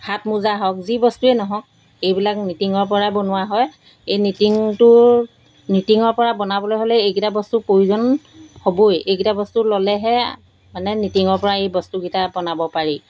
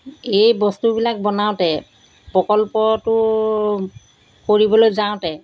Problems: constant background noise